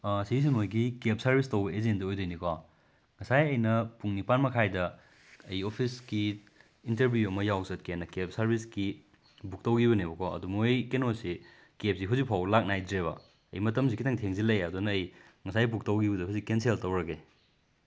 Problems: none marked